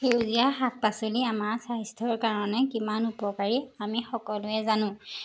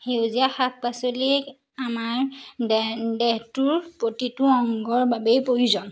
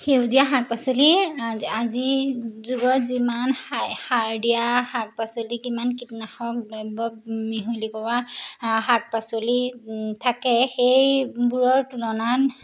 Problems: background sounds at intervals